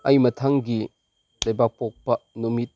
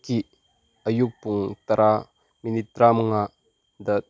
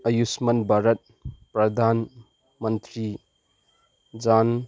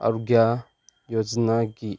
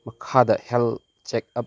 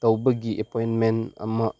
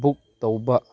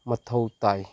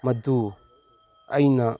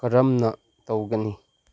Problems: constant background noise